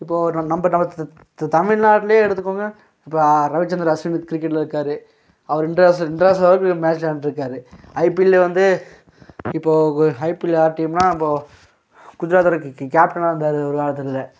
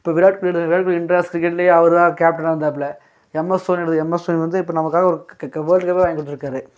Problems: background sounds at intervals